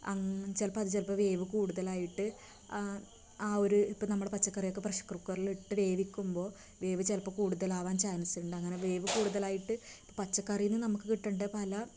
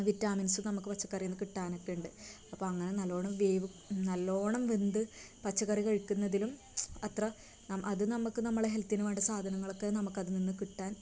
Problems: constant background noise, low volume